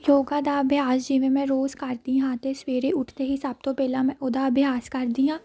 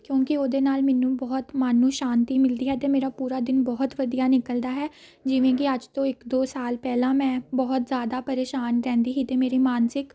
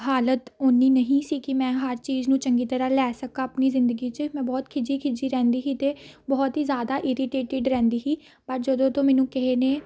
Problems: none marked